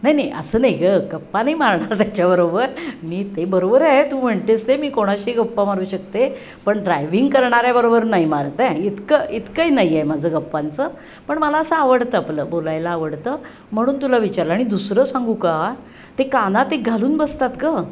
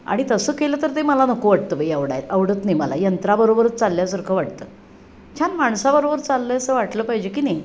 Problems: constant background noise